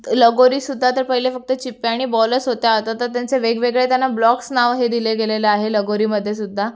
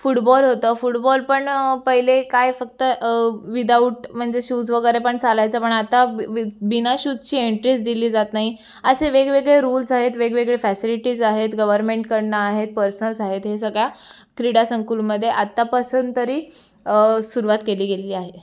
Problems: constant background noise, background conversations at intervals